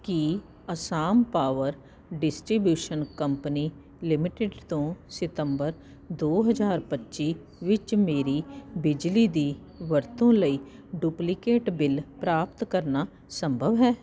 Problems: constant background noise